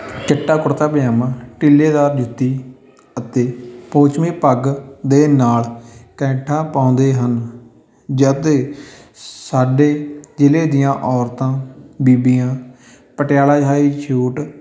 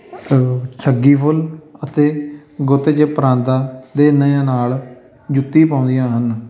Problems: constant background noise, background conversations at intervals